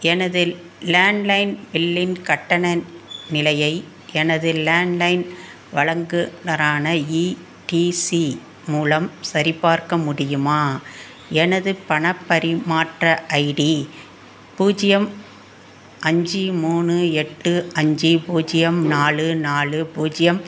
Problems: constant background noise